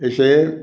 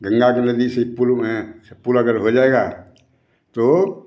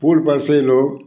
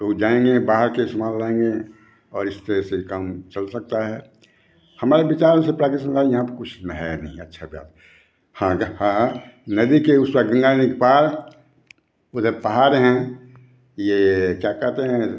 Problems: constant background noise